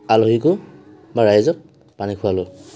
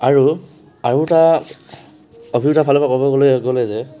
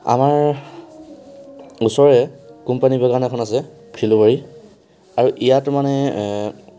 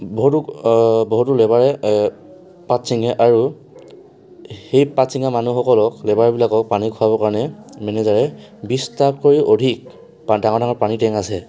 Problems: constant background noise, background conversations at intervals